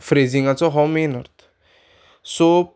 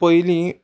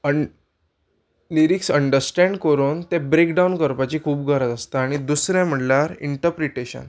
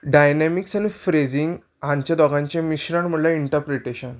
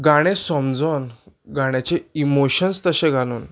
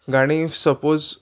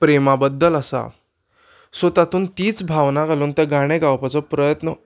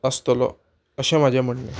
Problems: background sounds at intervals